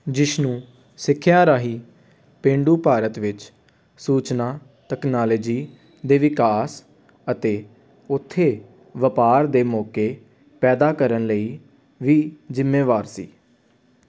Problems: constant background noise